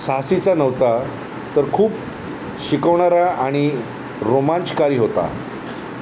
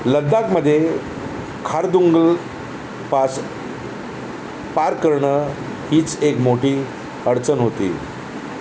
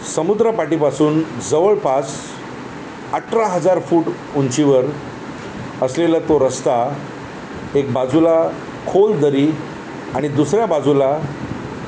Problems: constant background noise